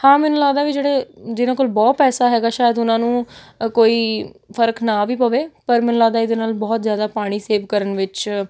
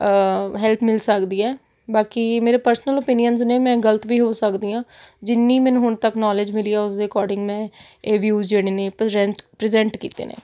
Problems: none marked